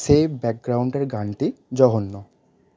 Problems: constant background noise, background conversations at intervals